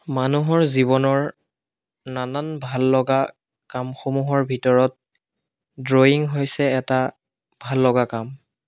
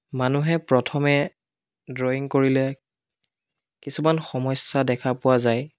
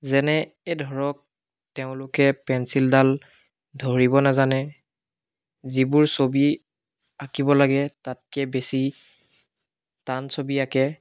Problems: none marked